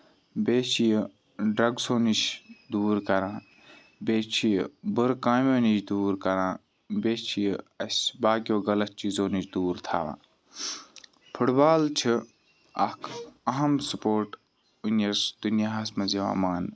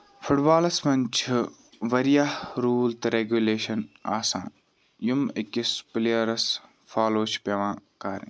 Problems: background sounds at intervals